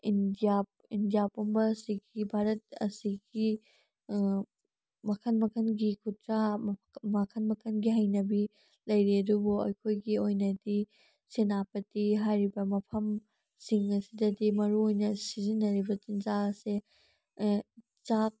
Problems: none marked